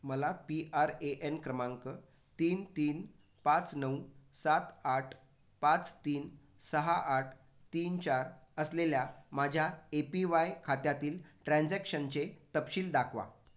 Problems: none marked